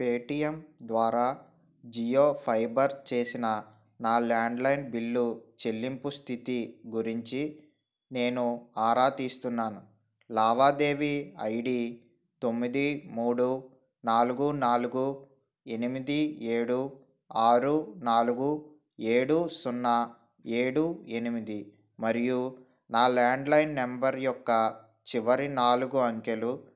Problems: none marked